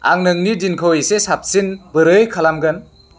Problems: none marked